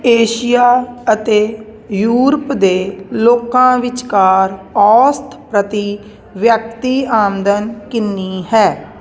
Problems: constant background noise